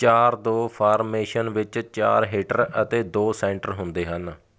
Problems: none marked